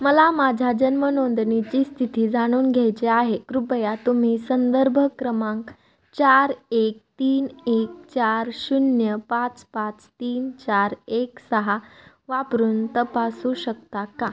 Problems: background sounds at intervals